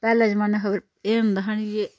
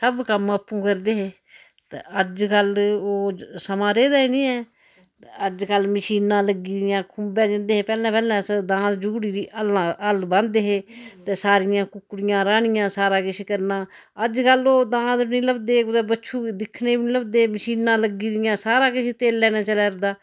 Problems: none marked